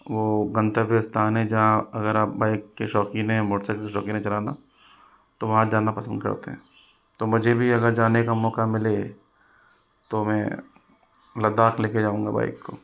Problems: constant background noise